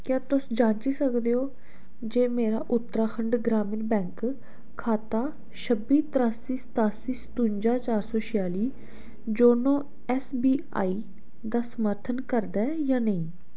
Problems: none marked